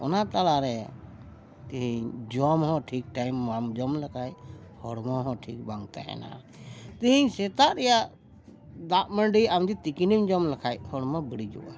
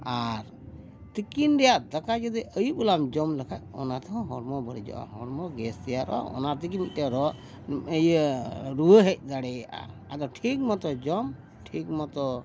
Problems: background sounds at intervals